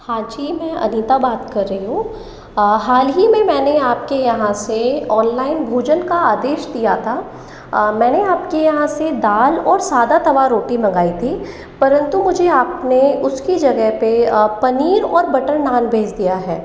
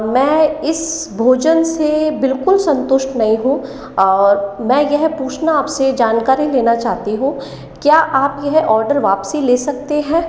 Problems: echo